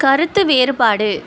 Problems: constant background noise